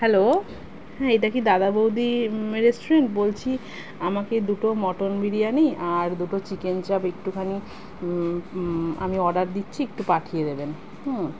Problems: constant background noise